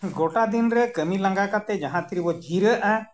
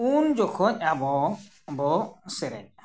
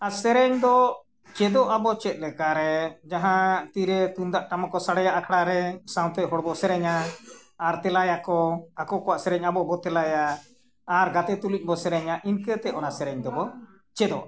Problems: none marked